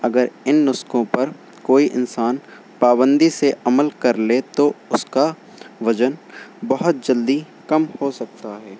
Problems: constant background noise